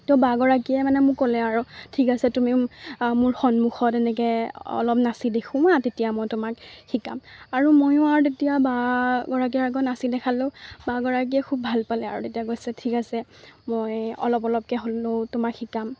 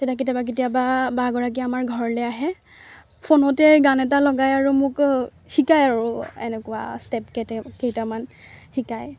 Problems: constant background noise